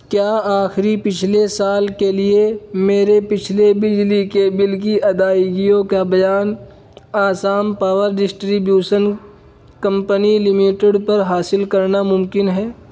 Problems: none marked